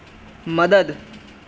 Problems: none marked